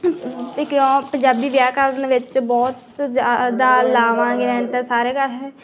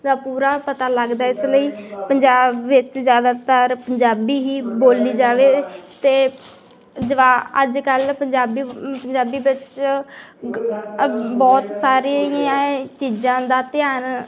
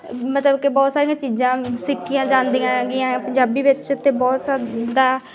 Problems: continuous background conversations